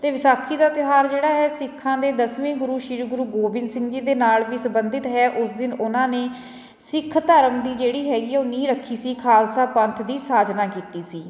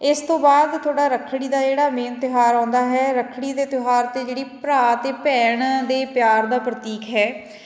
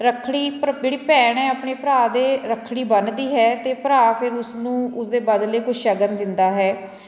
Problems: continuous background conversations